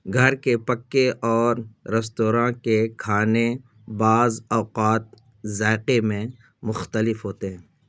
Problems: none marked